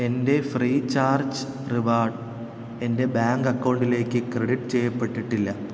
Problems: constant background noise